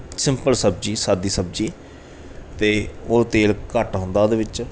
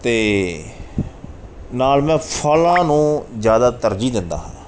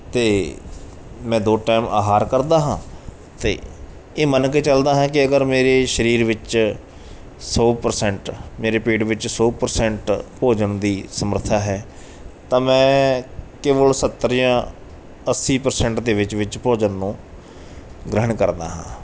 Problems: background sounds at intervals